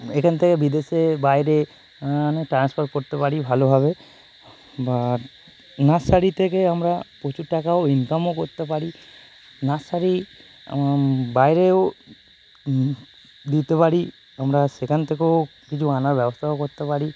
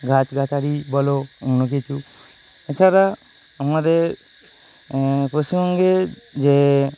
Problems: constant background noise